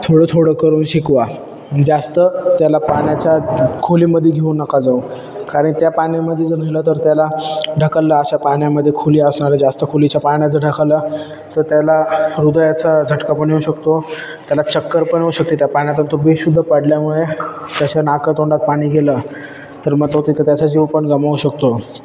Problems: constant background noise, background conversations at intervals